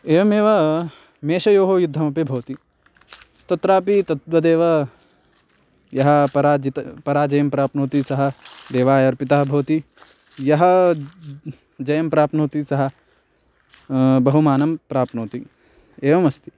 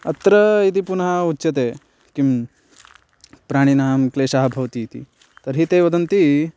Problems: constant background noise